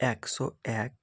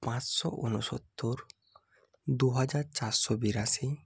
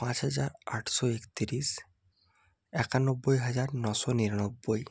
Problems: none marked